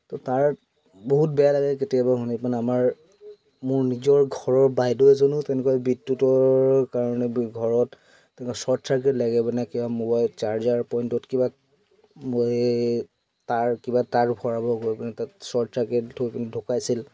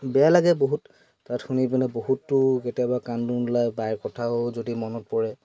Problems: constant background noise, background conversations at intervals